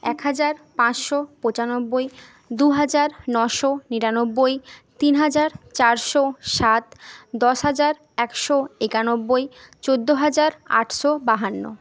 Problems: none marked